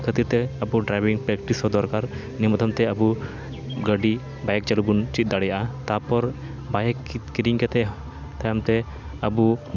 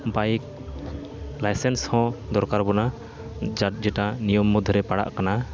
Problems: constant background noise